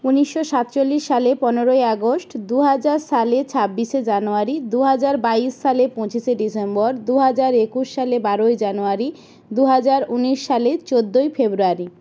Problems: constant background noise